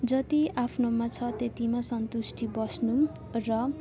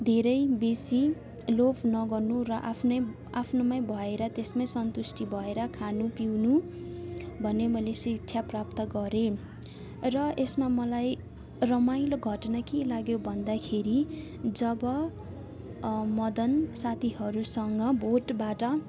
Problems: constant background noise, background conversations at intervals